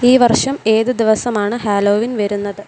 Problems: constant background noise